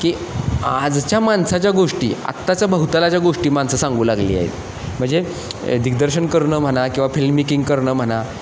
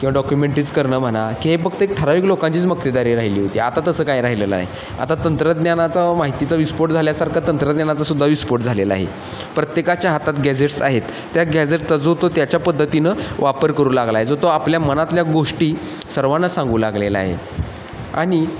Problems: constant background noise, echo